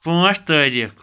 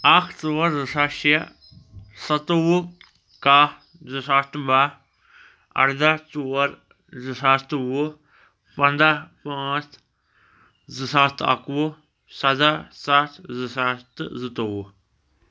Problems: none marked